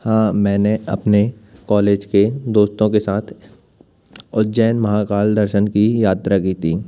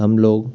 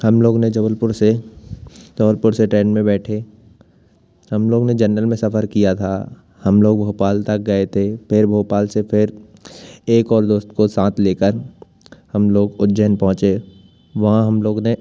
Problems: constant background noise